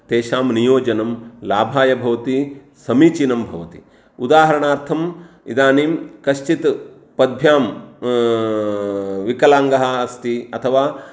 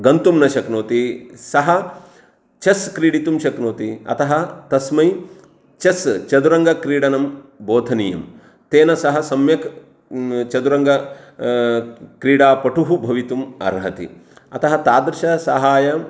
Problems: none marked